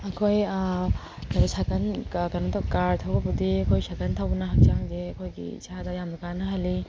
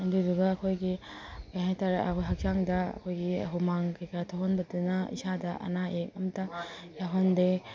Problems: background sounds at intervals